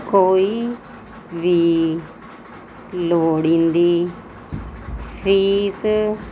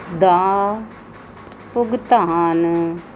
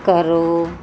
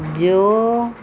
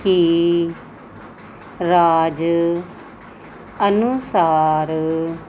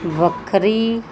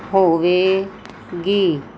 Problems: none marked